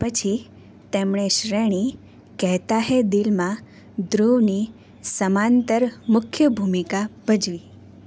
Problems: none marked